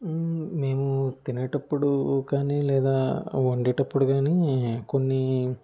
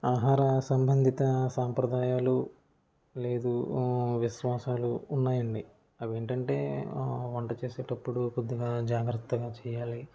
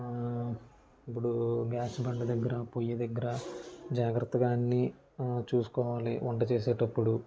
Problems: none marked